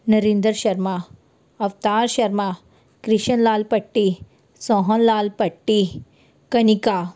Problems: background sounds at intervals